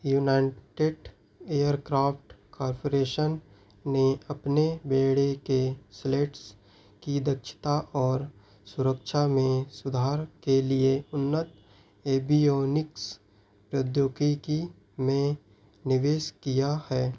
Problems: none marked